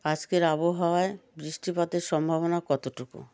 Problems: background conversations at intervals